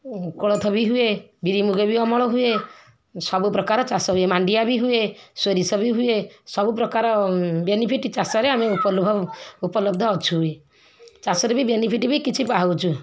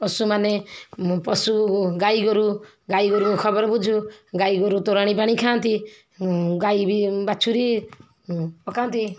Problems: background sounds at intervals